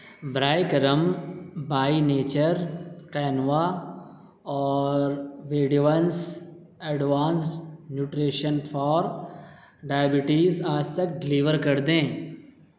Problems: constant background noise, echo